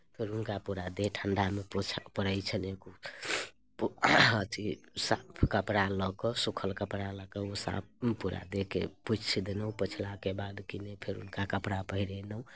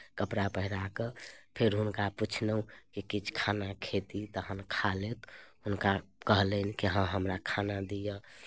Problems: none marked